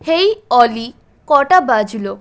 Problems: background sounds at intervals